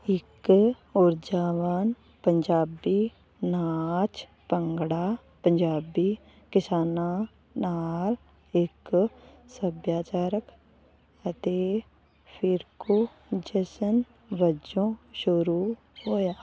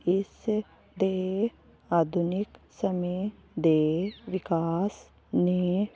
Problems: constant background noise